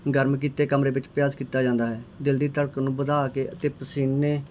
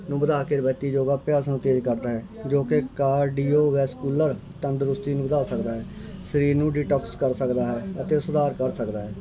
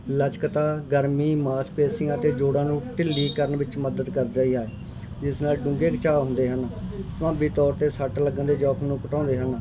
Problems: continuous background conversations